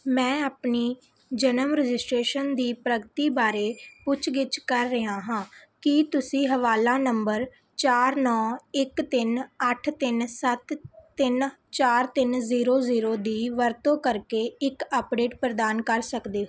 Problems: none marked